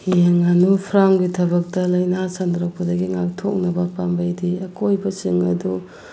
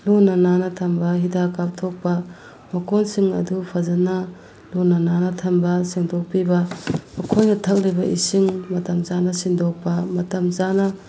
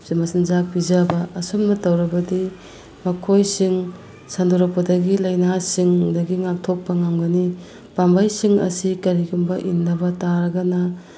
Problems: background sounds at intervals